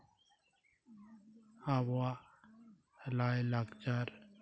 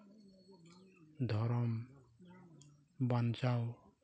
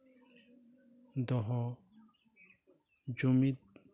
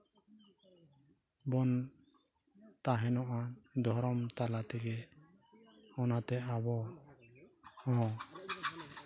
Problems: background sounds at intervals, background conversations at intervals, low volume